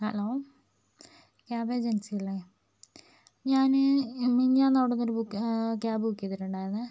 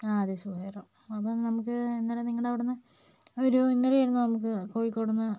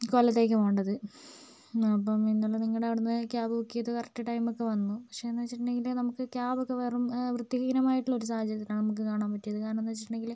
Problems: low volume